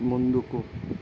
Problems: constant background noise